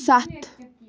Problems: background sounds at intervals